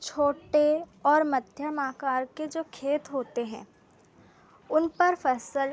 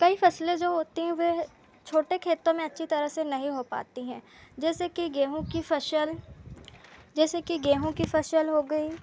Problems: none marked